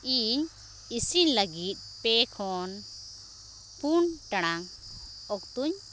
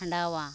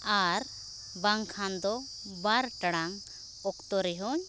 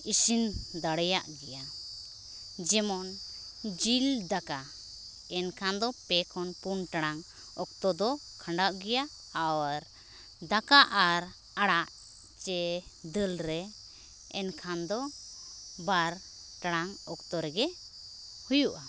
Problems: none marked